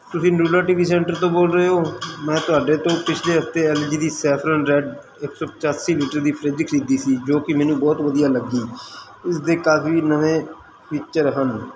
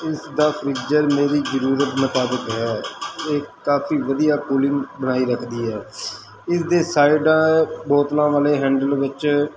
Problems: constant background noise